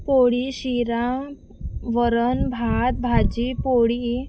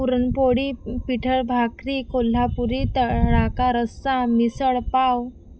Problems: background sounds at intervals